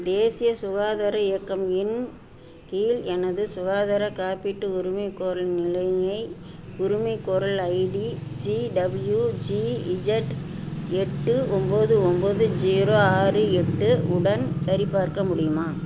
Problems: none marked